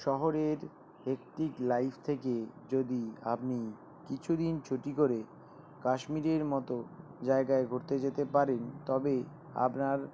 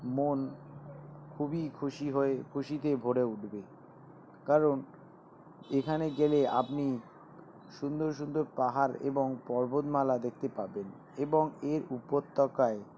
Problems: none marked